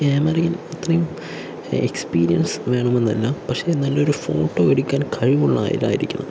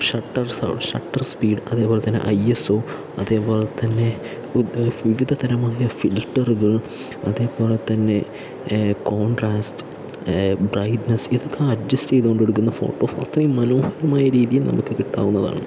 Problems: constant background noise, low volume